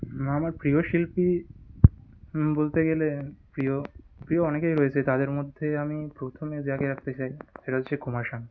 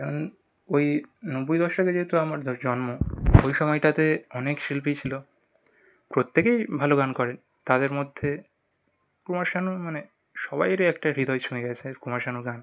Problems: background sounds at intervals